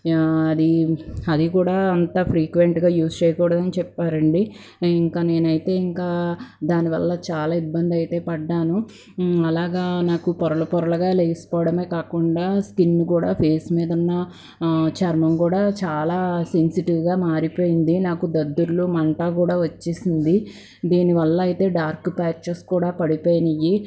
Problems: background sounds at intervals